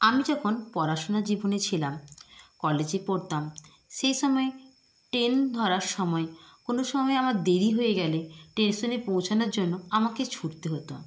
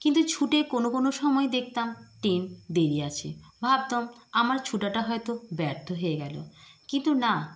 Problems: constant background noise